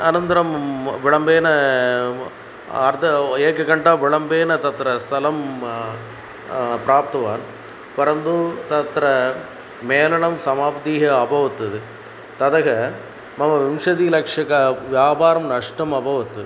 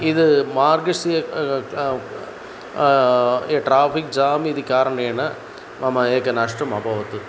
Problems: constant background noise